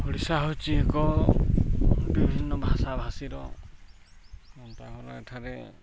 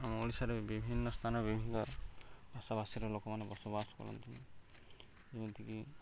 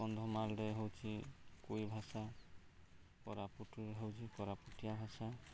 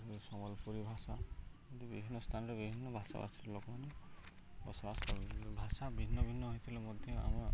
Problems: none marked